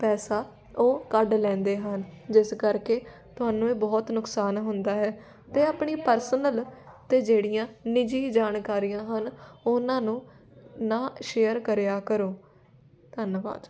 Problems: none marked